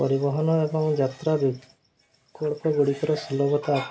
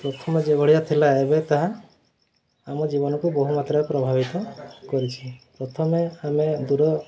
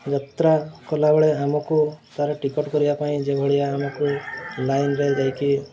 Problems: constant background noise, continuous background conversations